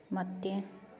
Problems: low volume